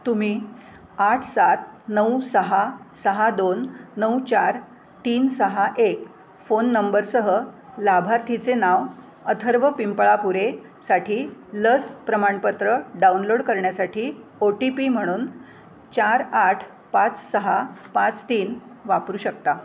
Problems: none marked